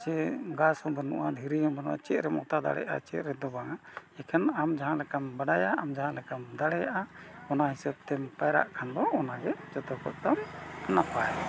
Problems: background sounds at intervals